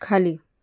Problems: none marked